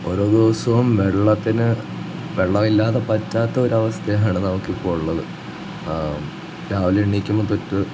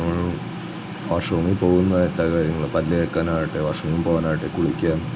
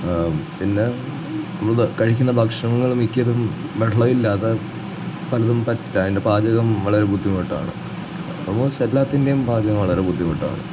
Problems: none marked